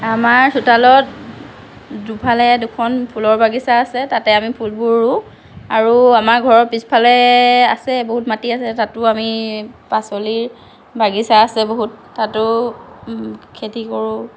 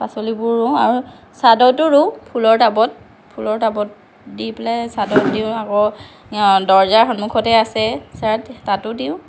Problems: none marked